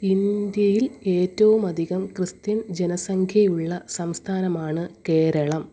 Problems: none marked